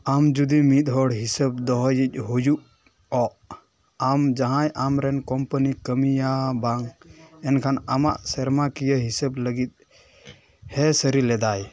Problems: none marked